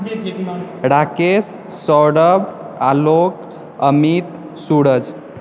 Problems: background conversations at intervals